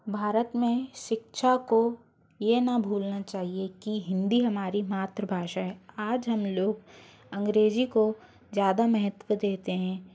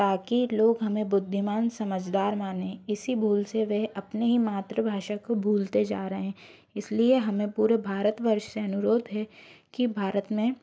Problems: constant background noise